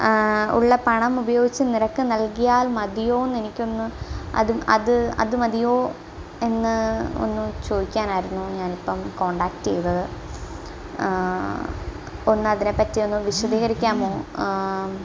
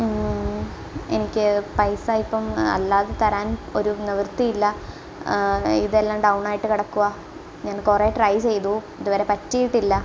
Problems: constant background noise